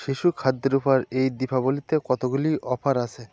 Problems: constant background noise, continuous background conversations